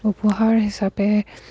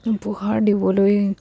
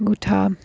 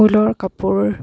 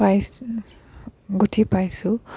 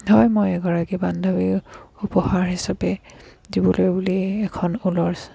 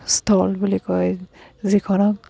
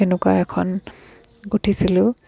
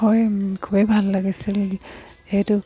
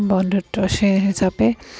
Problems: background sounds at intervals, background conversations at intervals